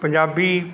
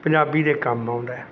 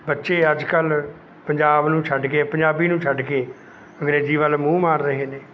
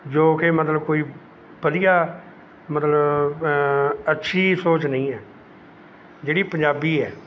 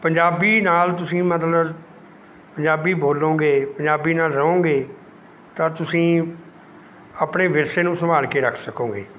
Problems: none marked